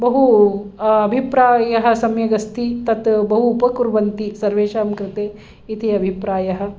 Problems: none marked